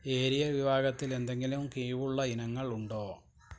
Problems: background sounds at intervals